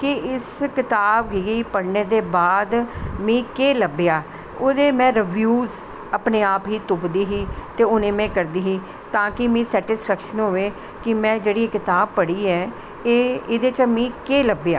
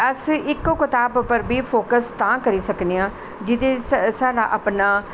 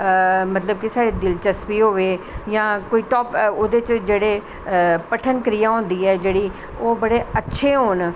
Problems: none marked